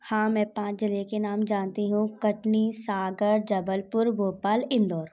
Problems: none marked